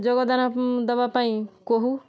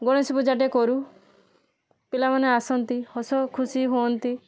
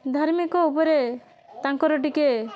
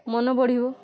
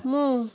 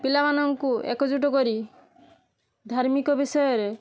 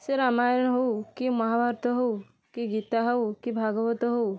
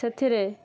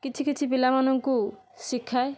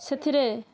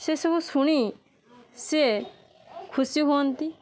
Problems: constant background noise